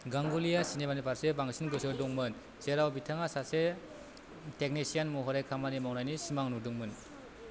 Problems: none marked